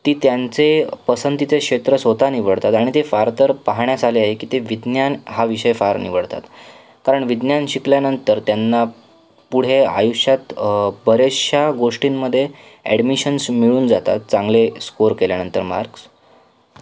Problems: background sounds at intervals